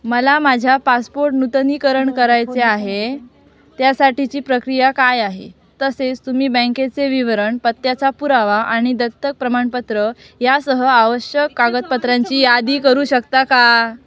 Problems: background sounds at intervals, background conversations at intervals